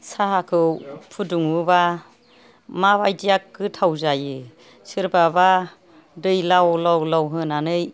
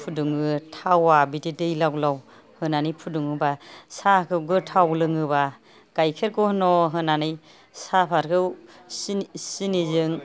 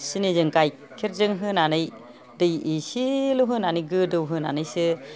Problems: none marked